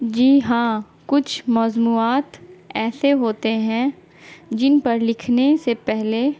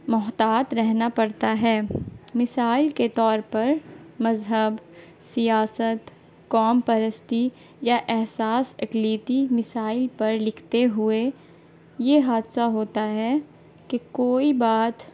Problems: constant background noise